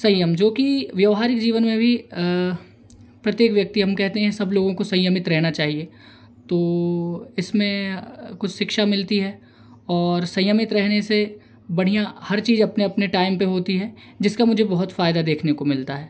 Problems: none marked